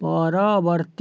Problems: none marked